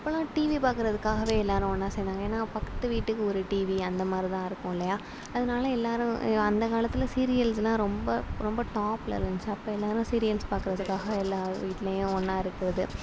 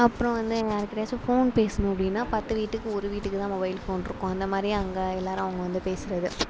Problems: none marked